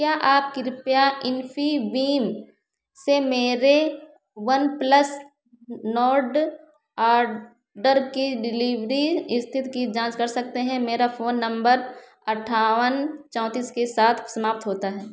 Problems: echo